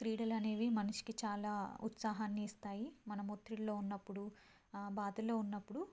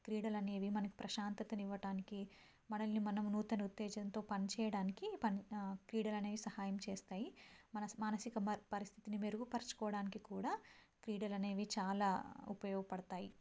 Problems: low volume